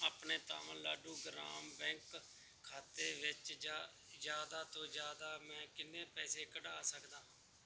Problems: background sounds at intervals